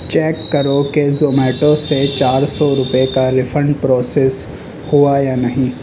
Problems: constant background noise